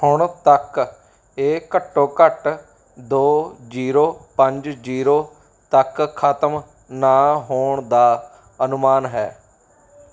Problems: background sounds at intervals